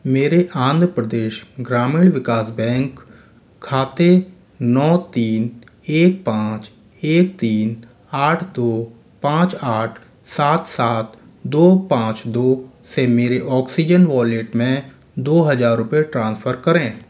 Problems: constant background noise